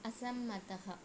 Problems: low volume